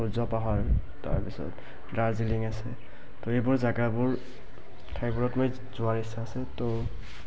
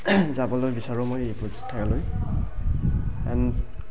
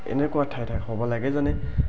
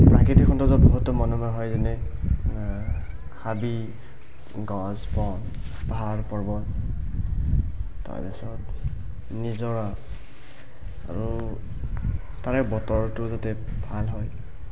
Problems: background sounds at intervals, continuous background conversations, low volume